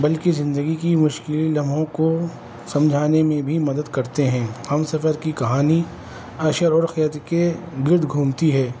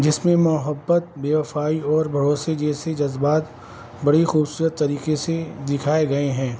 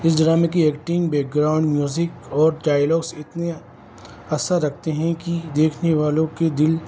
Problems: constant background noise